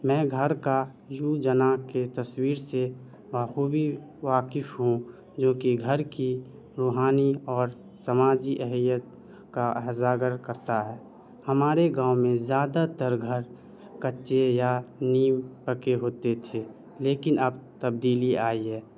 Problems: none marked